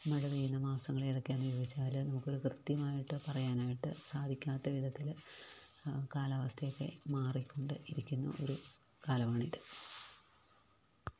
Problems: low volume